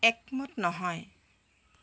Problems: constant background noise